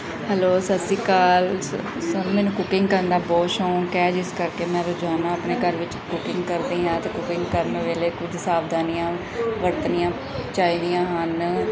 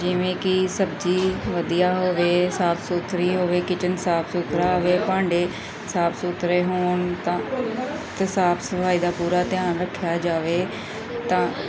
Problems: none marked